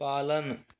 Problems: background sounds at intervals